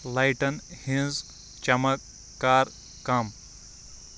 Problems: constant background noise